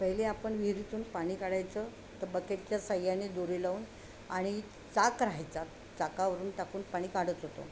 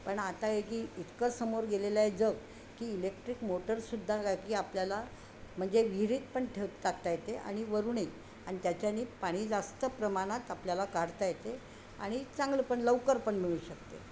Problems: constant background noise